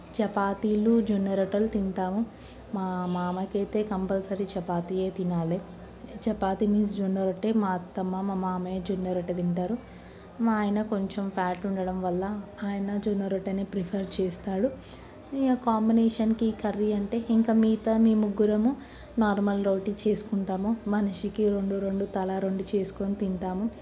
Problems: none marked